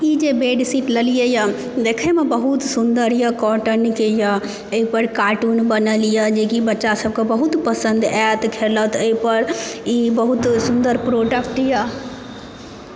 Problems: none marked